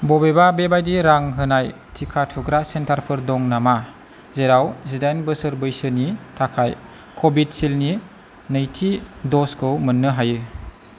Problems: constant background noise